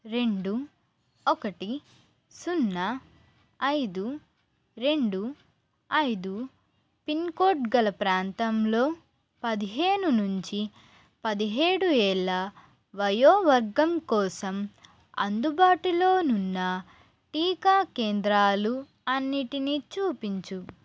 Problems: constant background noise